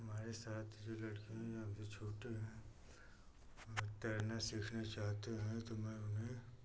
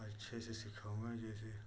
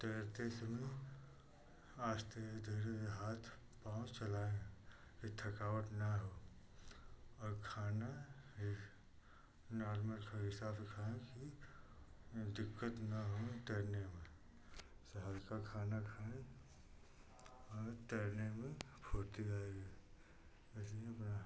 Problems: none marked